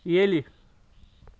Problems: background sounds at intervals